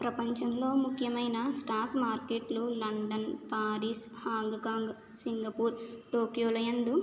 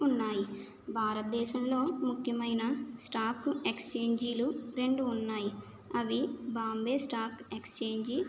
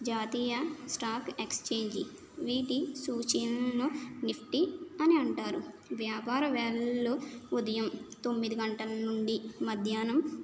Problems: none marked